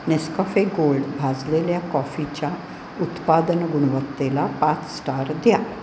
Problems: none marked